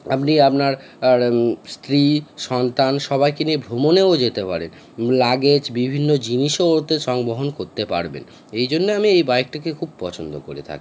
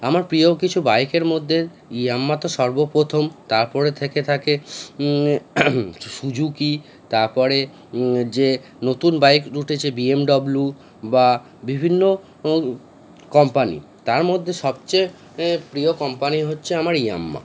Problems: none marked